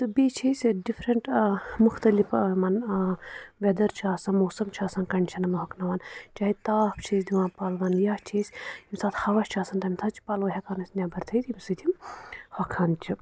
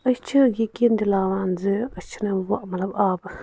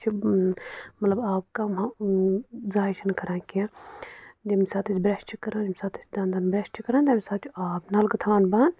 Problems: none marked